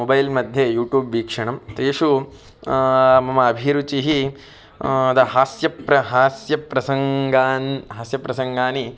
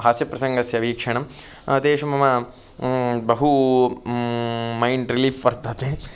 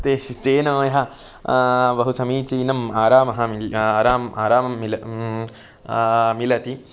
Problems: none marked